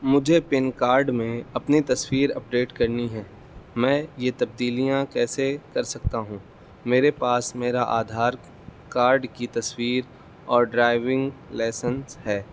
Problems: constant background noise, low volume